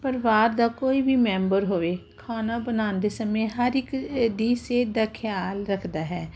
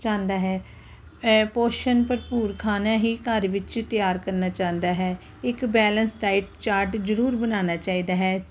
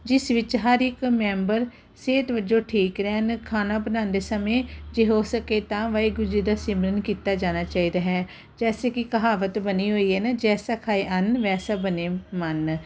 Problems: none marked